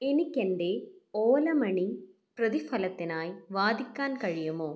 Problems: none marked